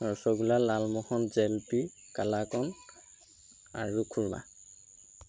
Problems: constant background noise